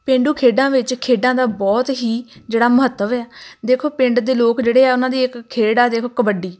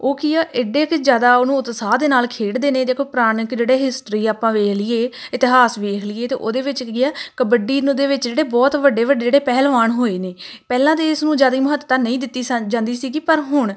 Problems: none marked